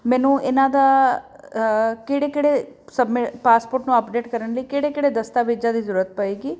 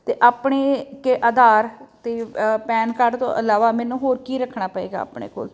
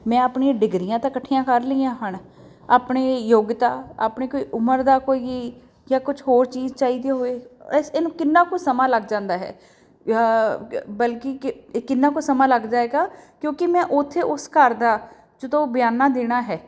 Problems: none marked